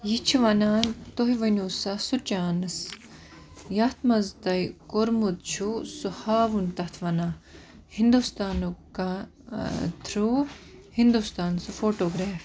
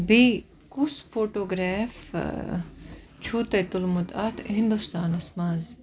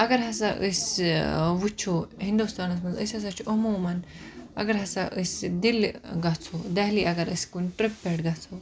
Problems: none marked